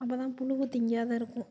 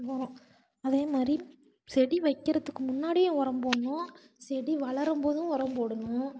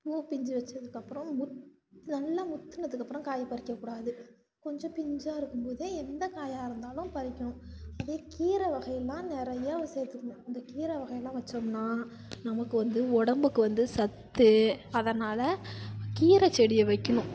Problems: background sounds at intervals